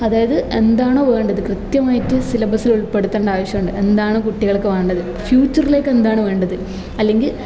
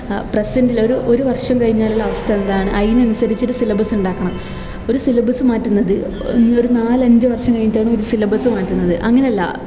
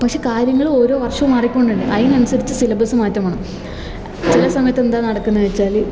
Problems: background sounds at intervals